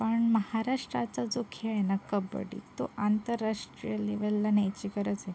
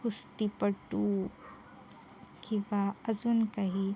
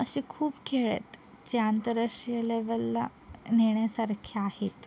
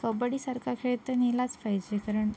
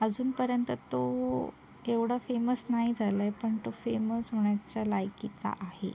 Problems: constant background noise, background conversations at intervals